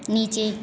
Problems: none marked